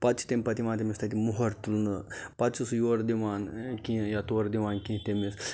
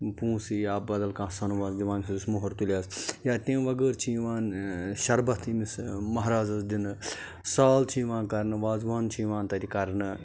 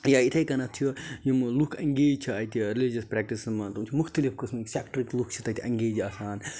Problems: constant background noise